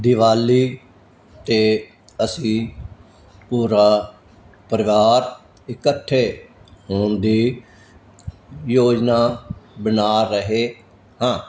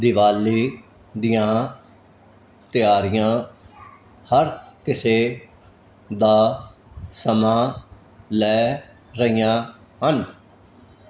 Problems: none marked